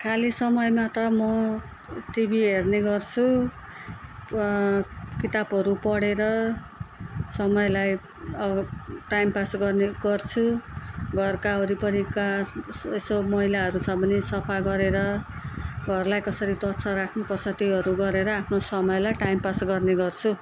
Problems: background conversations at intervals